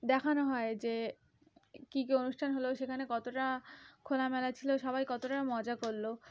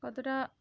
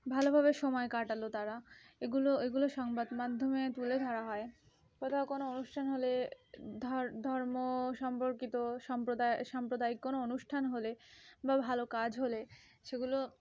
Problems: continuous background conversations